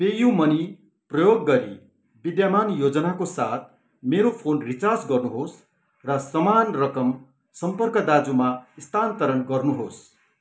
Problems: none marked